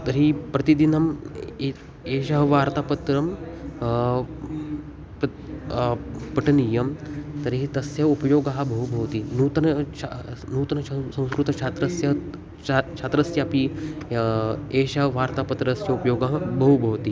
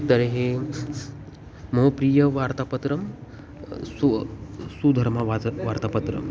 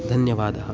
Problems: constant background noise, continuous background conversations